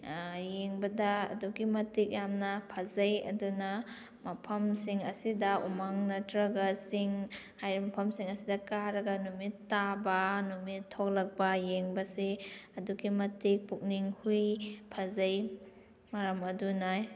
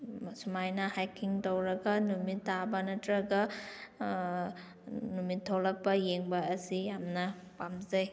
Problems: none marked